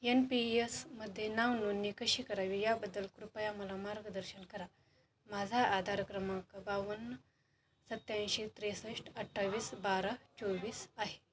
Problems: background sounds at intervals, background conversations at intervals